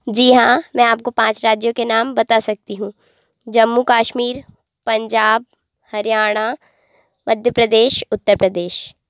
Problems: constant background noise